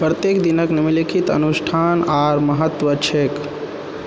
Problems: background sounds at intervals